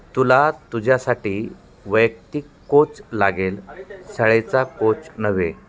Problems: constant background noise, continuous background conversations